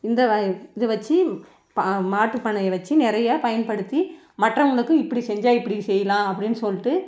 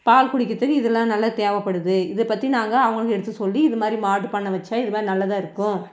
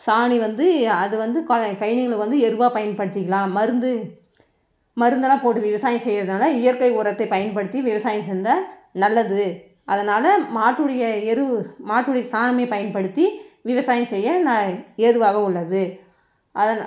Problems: background conversations at intervals